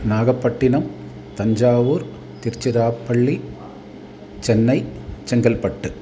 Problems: constant background noise